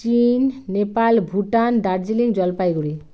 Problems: background sounds at intervals